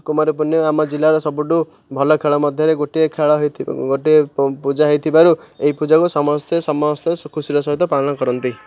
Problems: none marked